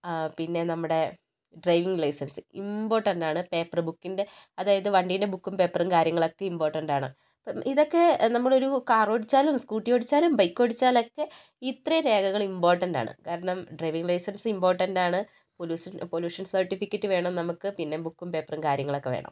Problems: low volume